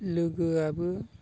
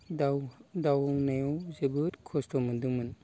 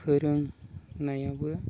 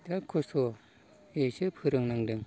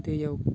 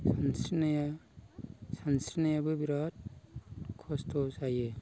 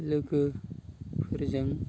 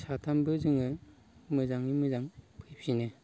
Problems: none marked